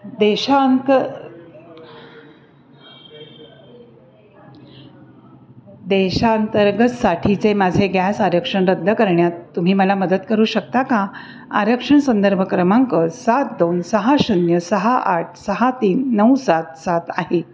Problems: constant background noise, background conversations at intervals